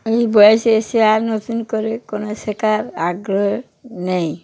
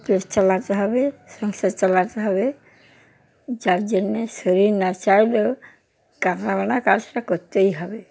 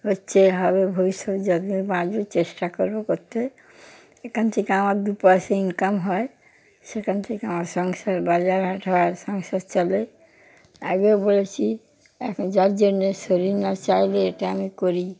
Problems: background sounds at intervals